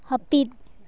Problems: none marked